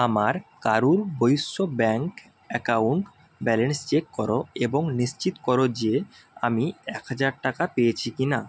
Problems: constant background noise